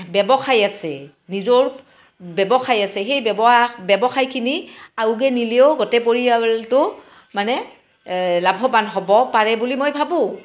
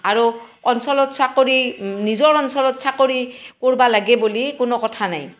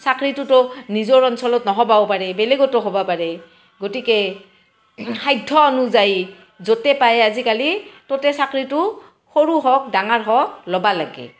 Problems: constant background noise